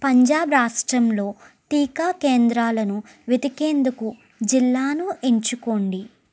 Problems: none marked